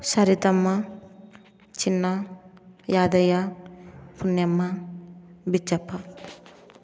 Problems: background sounds at intervals